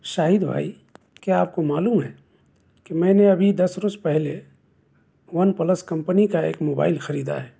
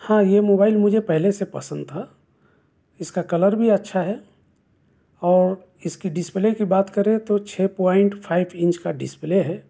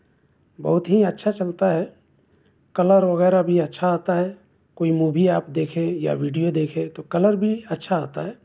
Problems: constant background noise